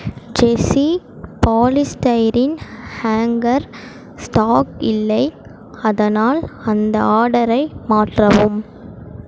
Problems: background sounds at intervals